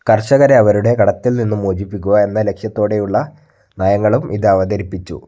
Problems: none marked